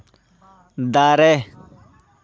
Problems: background conversations at intervals